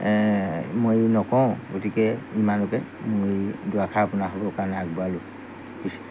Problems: background sounds at intervals